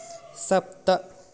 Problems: none marked